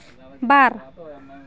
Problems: background sounds at intervals, continuous background conversations